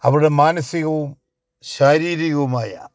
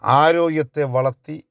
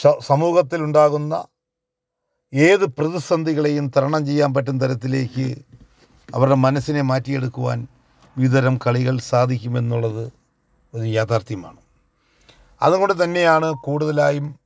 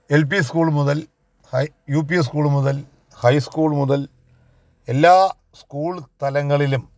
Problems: none marked